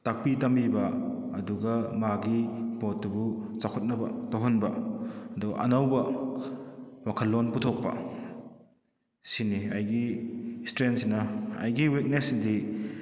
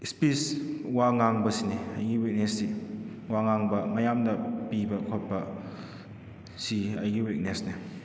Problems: echo